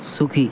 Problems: none marked